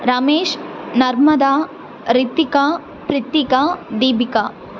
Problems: constant background noise